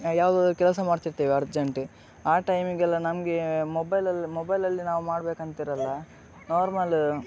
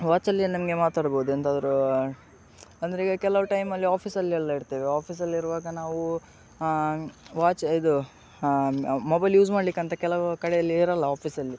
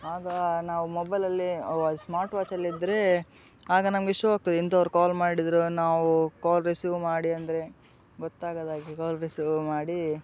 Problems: background sounds at intervals